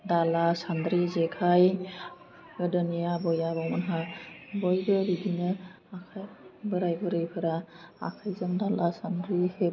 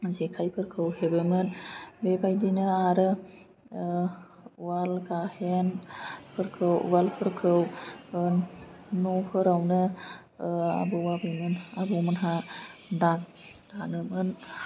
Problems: constant background noise